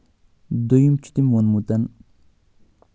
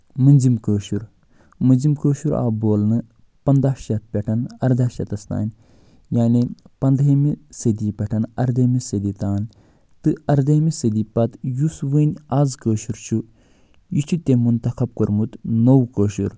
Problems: none marked